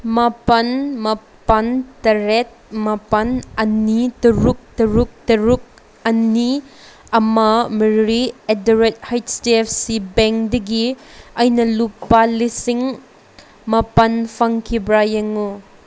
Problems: none marked